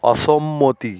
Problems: constant background noise